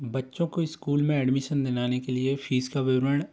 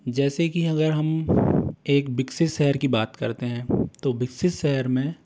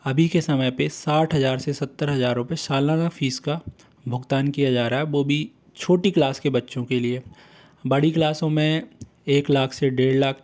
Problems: constant background noise